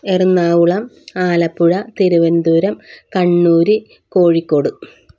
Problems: none marked